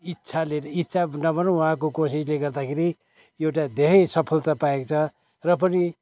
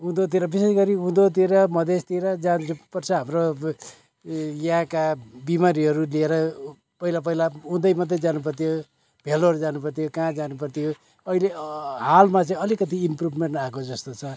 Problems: background sounds at intervals